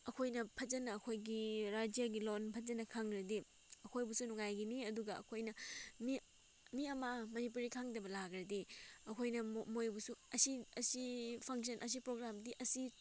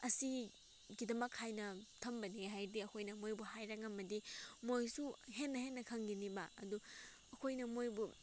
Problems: background sounds at intervals